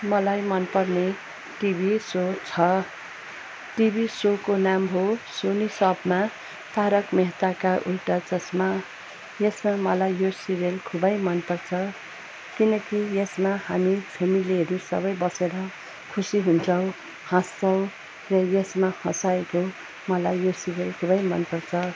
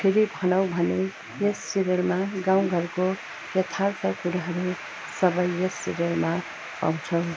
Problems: constant background noise